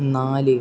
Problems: low volume